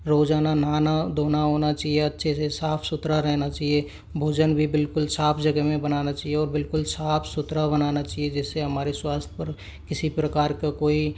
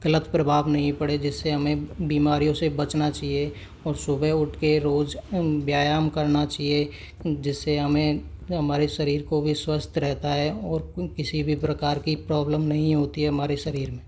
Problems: constant background noise